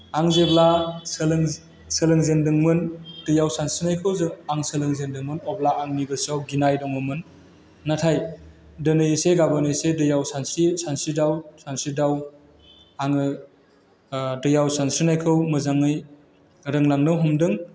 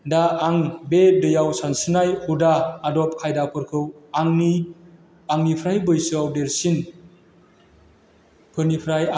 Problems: constant background noise